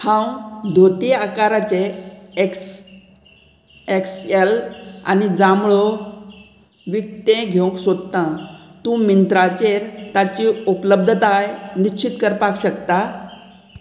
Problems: constant background noise